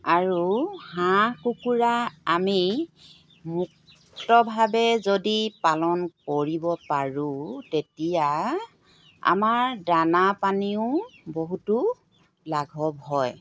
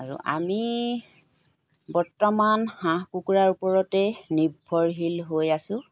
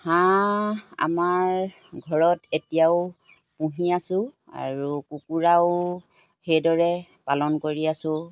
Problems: background sounds at intervals